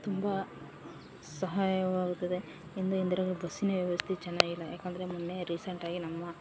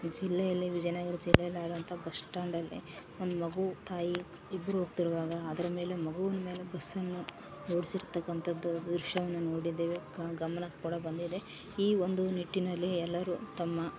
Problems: none marked